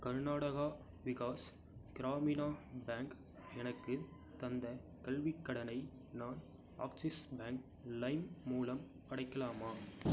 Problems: none marked